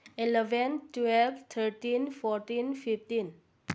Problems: low volume